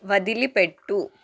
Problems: none marked